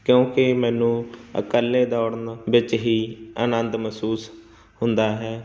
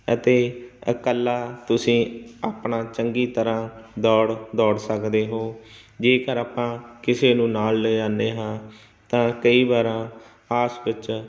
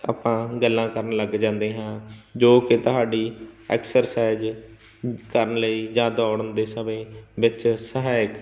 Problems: none marked